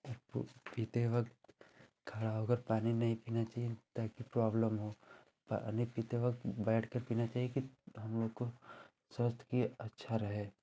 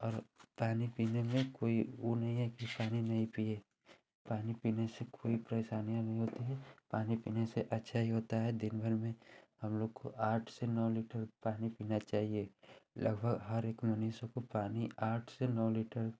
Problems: constant background noise